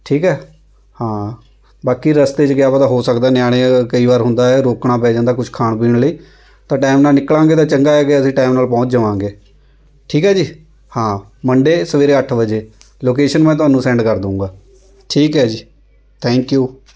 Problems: background sounds at intervals